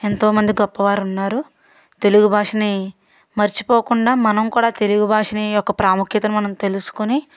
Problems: none marked